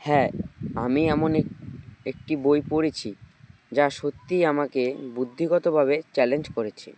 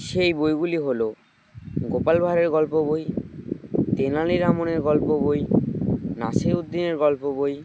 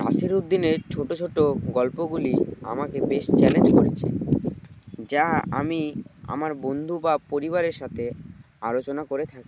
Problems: constant background noise